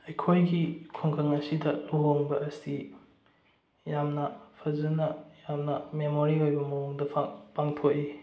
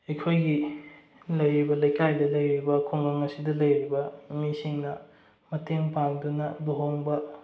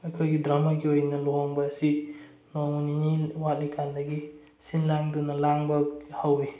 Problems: low volume